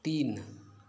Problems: constant background noise